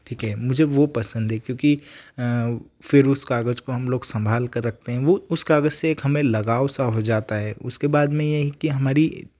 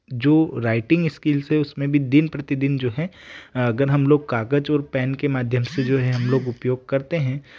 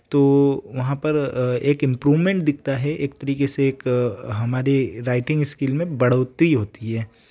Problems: background sounds at intervals